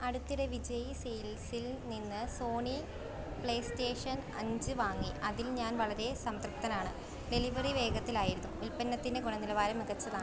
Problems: none marked